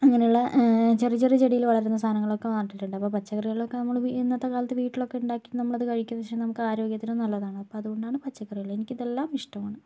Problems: low volume